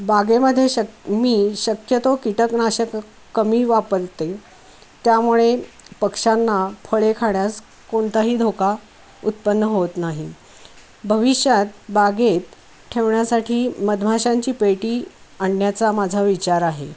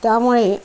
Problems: constant background noise